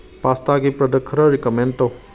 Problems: none marked